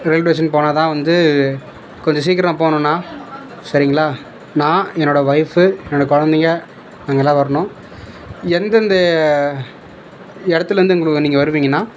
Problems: none marked